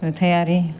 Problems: none marked